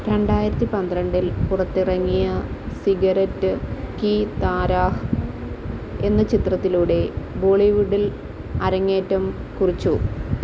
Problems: constant background noise, low volume